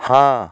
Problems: constant background noise